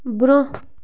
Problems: constant background noise